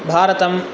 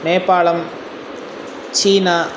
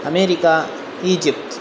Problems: none marked